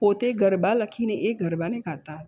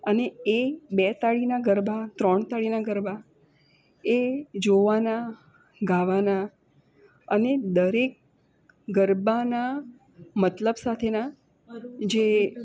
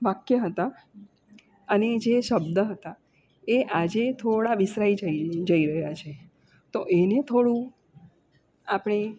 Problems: constant background noise